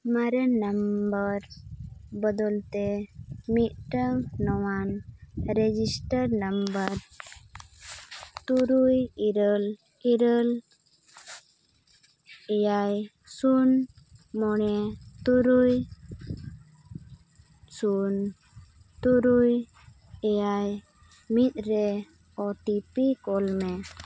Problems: constant background noise